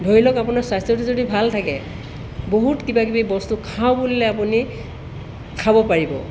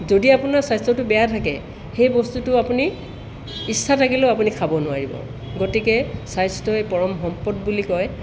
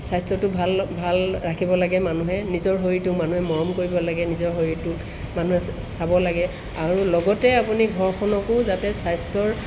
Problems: none marked